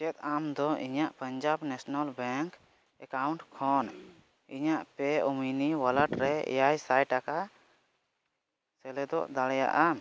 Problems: background sounds at intervals